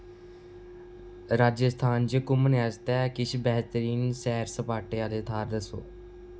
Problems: constant background noise